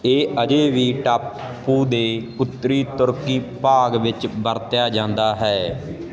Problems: constant background noise